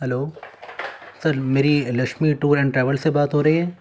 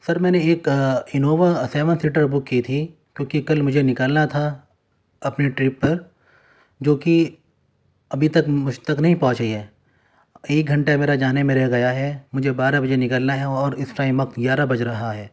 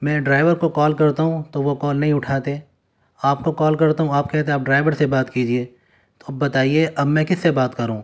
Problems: none marked